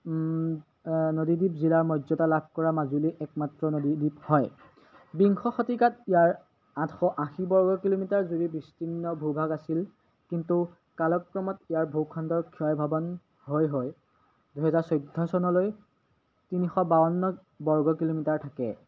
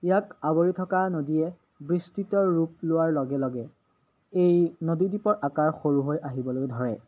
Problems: none marked